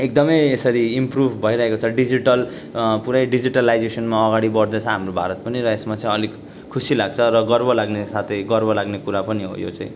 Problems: constant background noise